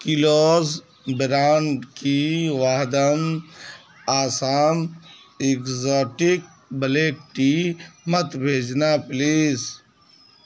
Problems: constant background noise